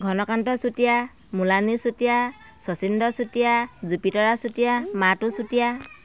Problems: constant background noise